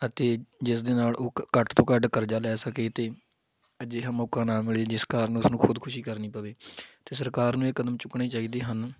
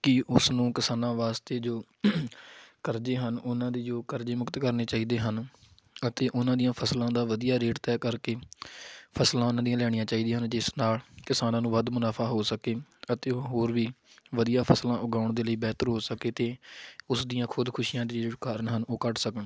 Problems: background sounds at intervals